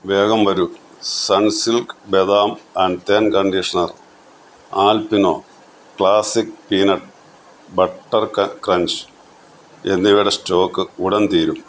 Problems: none marked